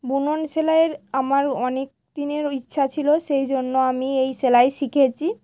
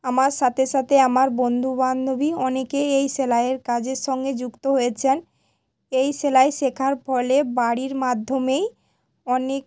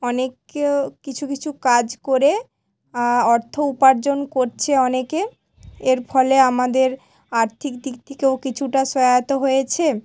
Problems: background sounds at intervals